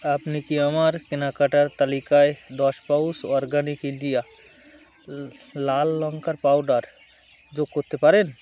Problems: none marked